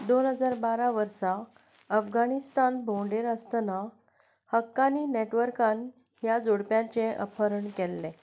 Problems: none marked